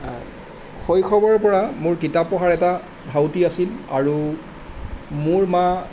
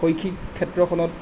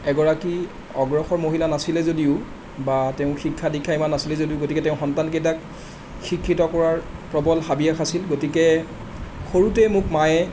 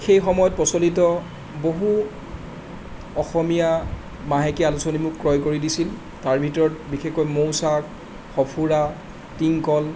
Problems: none marked